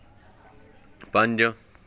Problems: background conversations at intervals